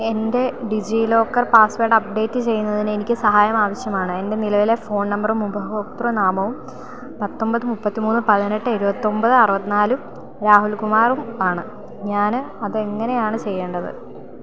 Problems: constant background noise